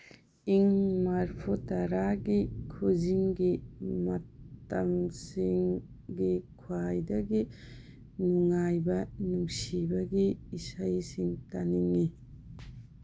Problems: constant background noise, low volume